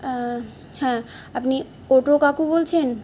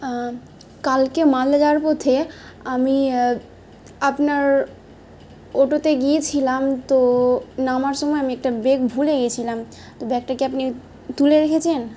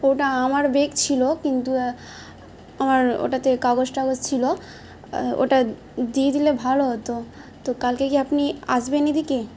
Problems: none marked